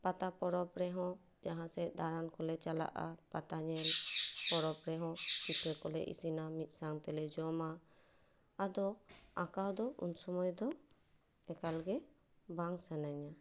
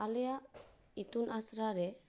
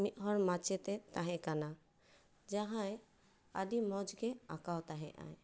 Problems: none marked